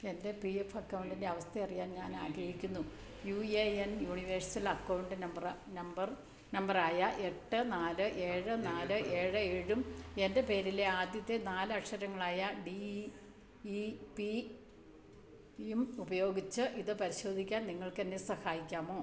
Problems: constant background noise, low volume